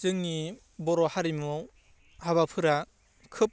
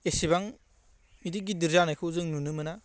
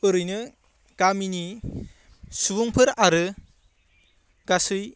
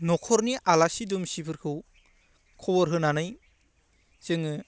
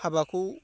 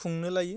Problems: constant background noise